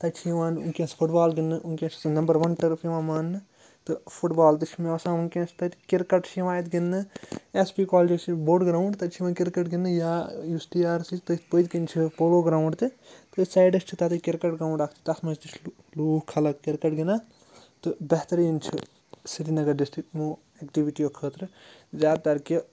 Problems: constant background noise